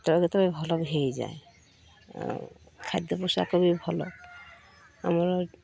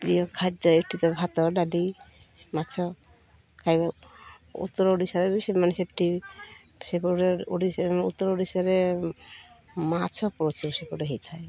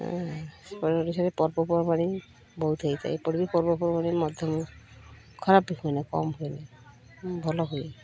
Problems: none marked